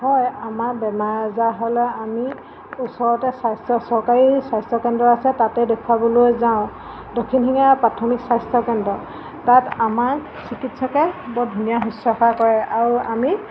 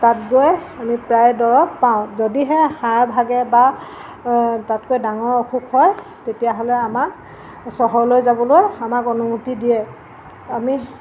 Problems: constant background noise